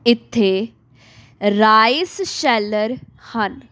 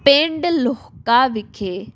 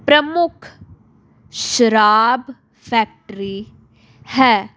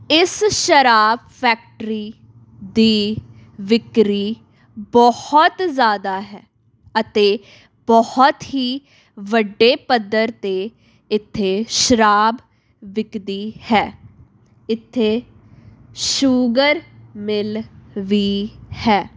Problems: none marked